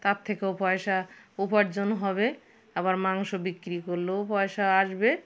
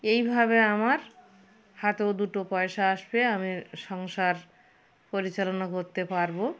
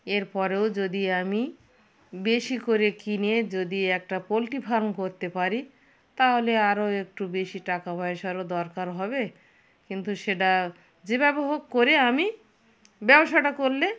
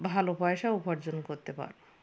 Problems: constant background noise, background conversations at intervals